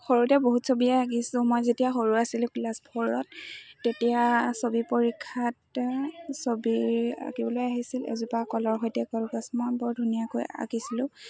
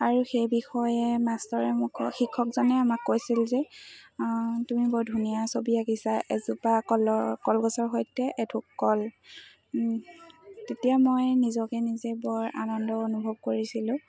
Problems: constant background noise, background conversations at intervals